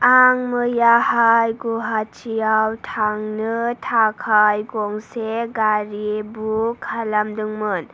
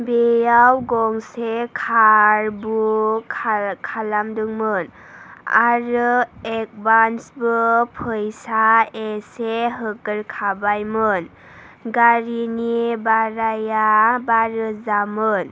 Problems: none marked